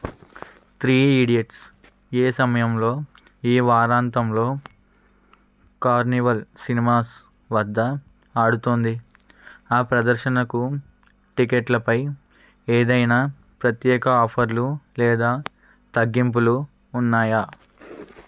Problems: background sounds at intervals